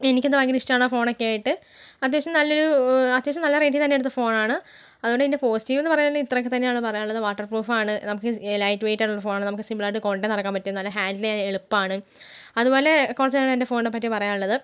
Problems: none marked